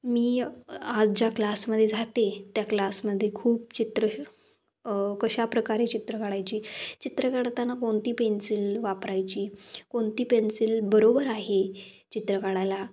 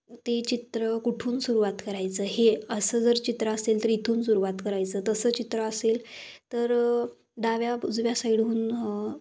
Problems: background sounds at intervals